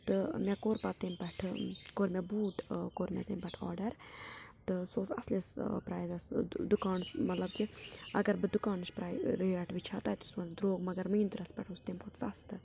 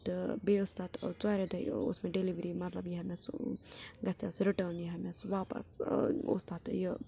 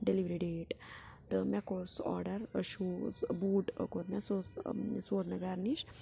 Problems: constant background noise